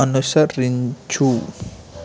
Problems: constant background noise